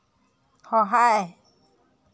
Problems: background sounds at intervals